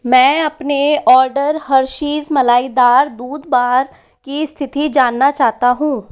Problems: constant background noise